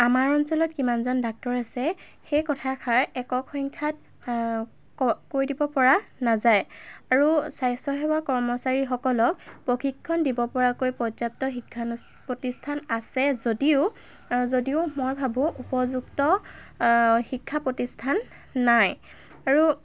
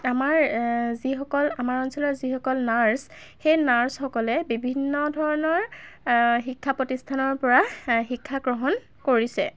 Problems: constant background noise